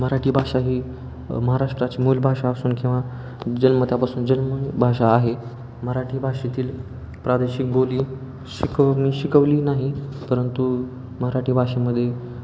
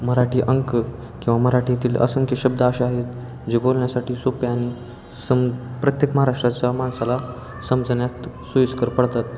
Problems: constant background noise, background conversations at intervals